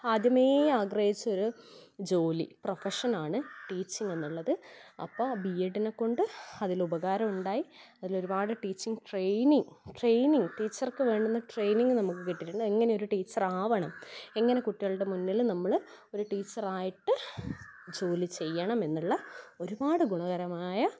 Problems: background sounds at intervals